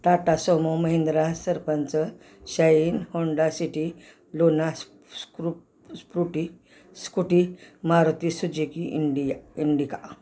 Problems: none marked